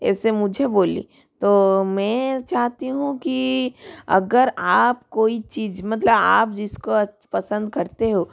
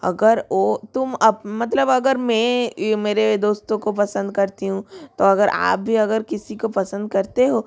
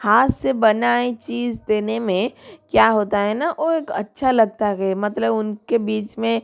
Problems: none marked